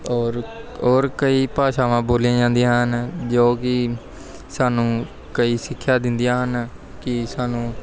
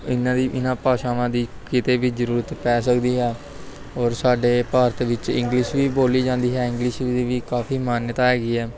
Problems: constant background noise